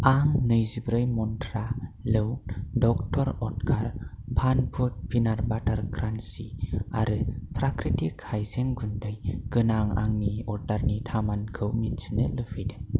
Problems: low volume